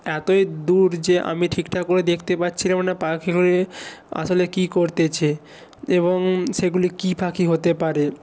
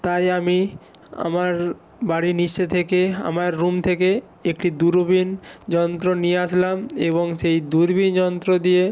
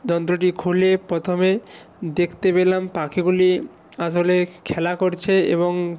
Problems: none marked